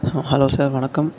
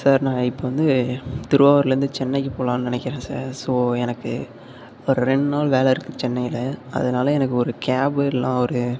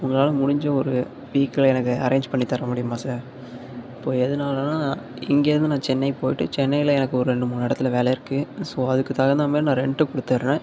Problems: none marked